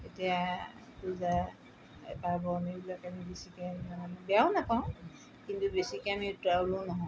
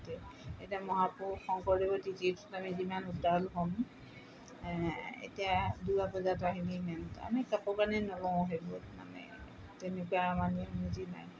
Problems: background sounds at intervals